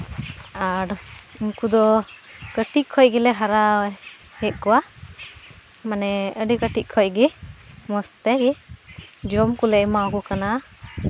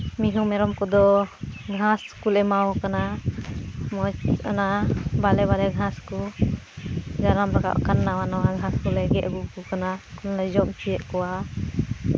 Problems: background sounds at intervals